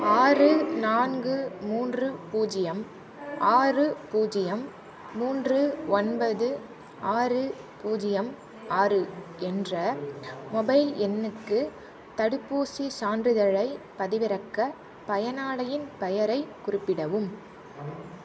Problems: constant background noise